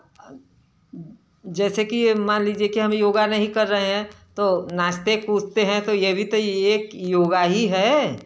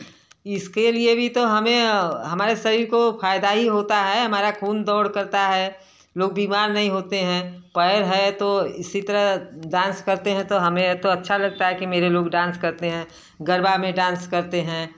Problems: background sounds at intervals